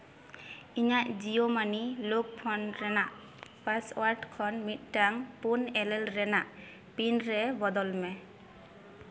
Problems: background sounds at intervals, echo